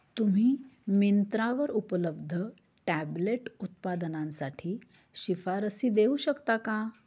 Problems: none marked